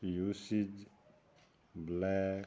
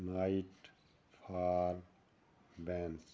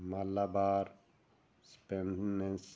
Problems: none marked